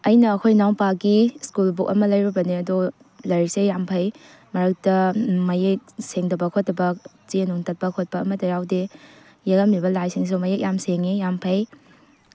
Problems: background sounds at intervals